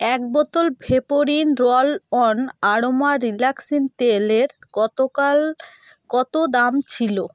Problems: background sounds at intervals